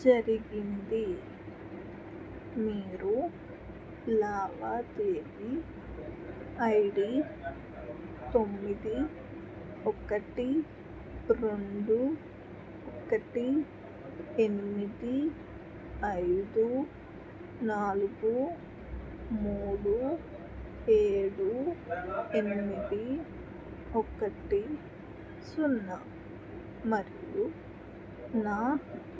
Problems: constant background noise, background conversations at intervals